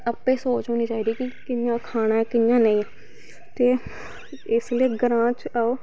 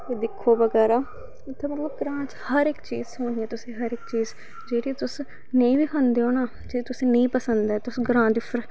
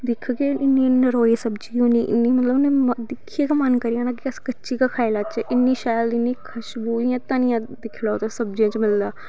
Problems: background sounds at intervals